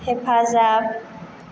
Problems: constant background noise